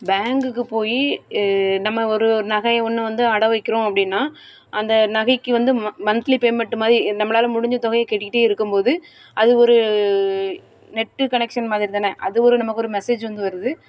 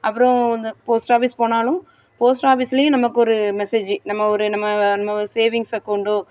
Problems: background sounds at intervals